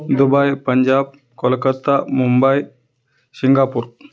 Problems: none marked